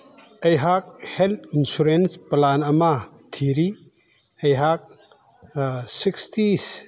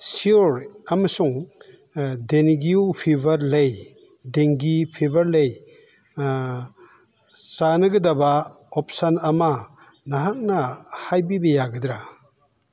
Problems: background sounds at intervals